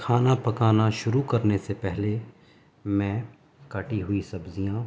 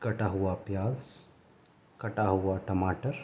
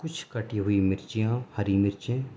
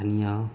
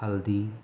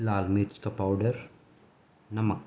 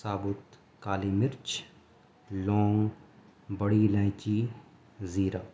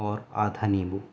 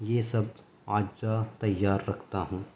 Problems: none marked